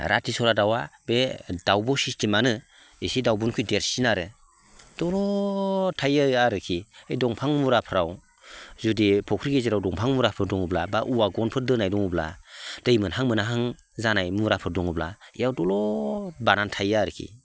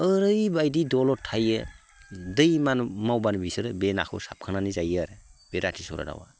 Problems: constant background noise